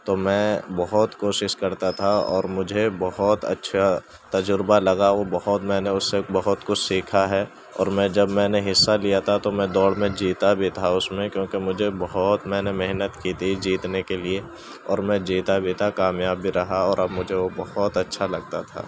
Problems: constant background noise